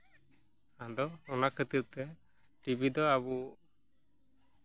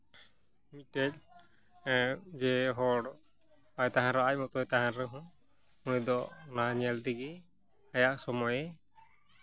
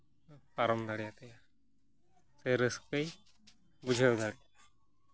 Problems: background sounds at intervals, background conversations at intervals